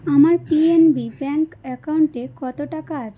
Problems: none marked